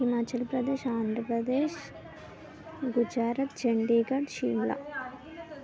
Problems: constant background noise, continuous background conversations